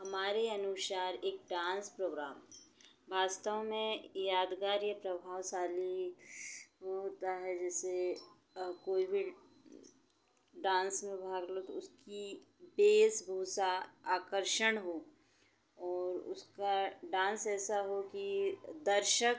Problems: constant background noise